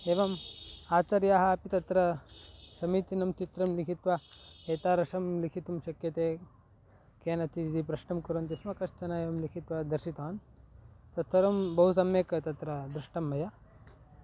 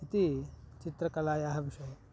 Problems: background sounds at intervals